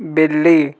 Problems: background sounds at intervals